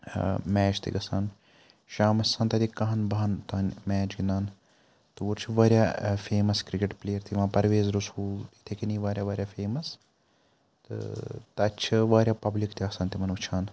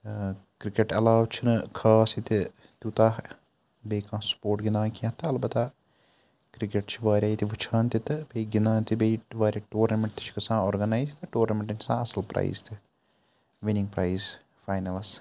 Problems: none marked